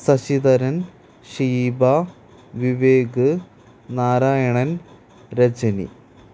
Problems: constant background noise